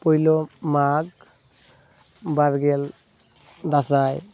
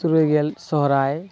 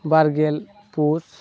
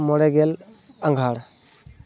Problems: none marked